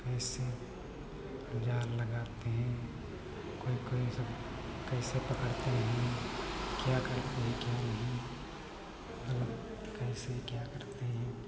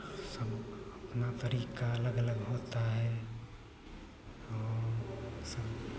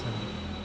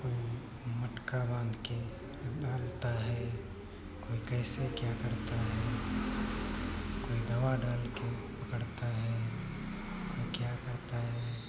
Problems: background sounds at intervals